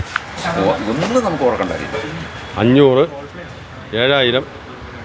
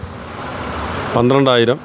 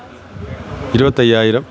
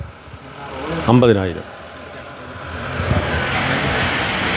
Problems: none marked